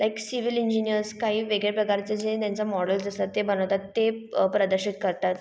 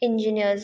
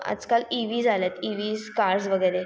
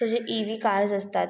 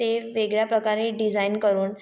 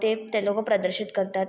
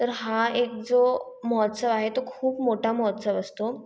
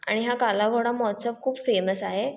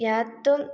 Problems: background sounds at intervals